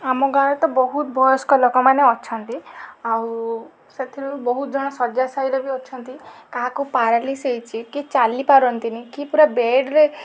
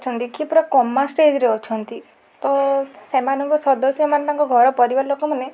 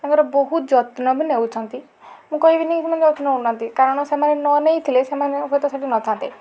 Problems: none marked